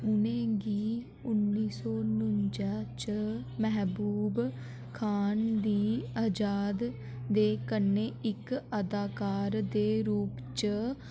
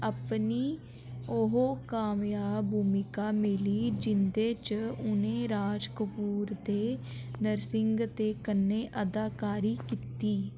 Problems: constant background noise